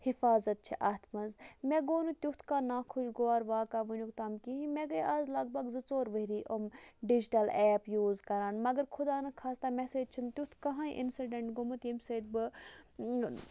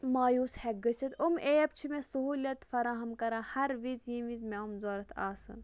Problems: none marked